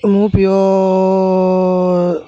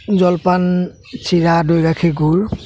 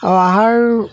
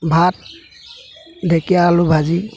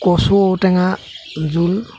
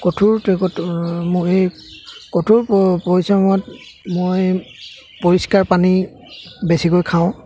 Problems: constant background noise, background conversations at intervals